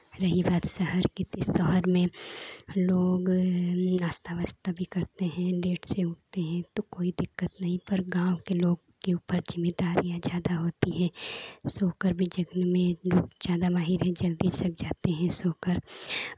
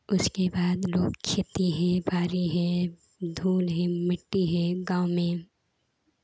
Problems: constant background noise